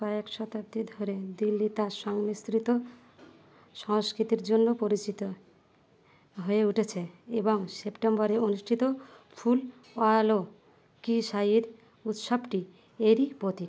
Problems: none marked